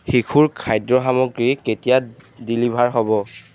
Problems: background sounds at intervals